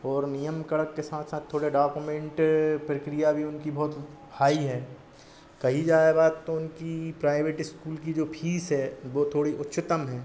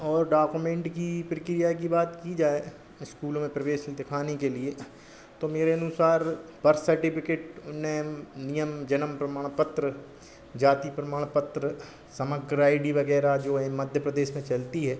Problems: none marked